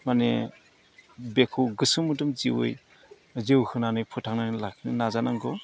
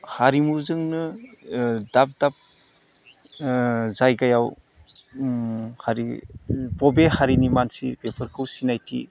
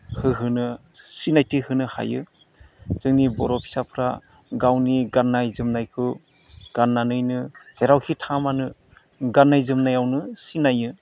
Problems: low volume